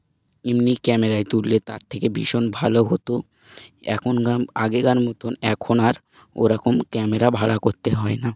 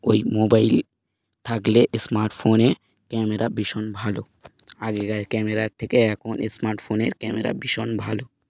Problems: none marked